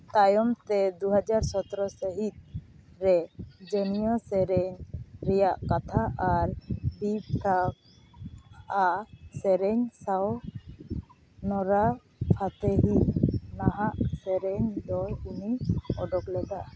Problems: constant background noise